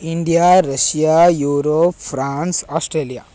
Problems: constant background noise